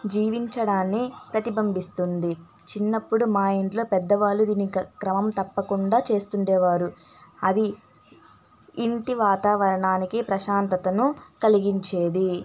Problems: constant background noise